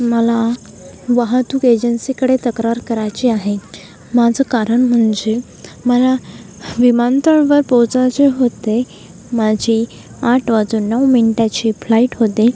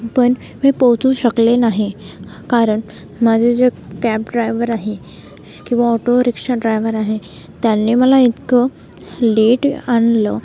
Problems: constant background noise, background conversations at intervals